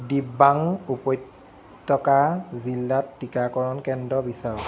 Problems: constant background noise